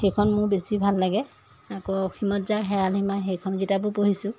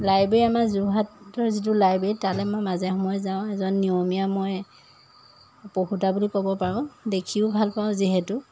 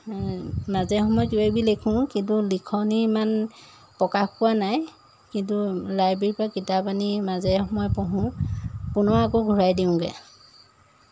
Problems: constant background noise